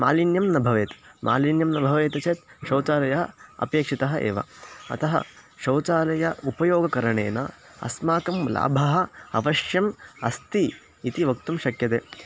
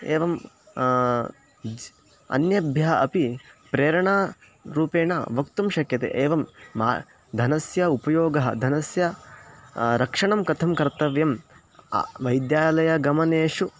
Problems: constant background noise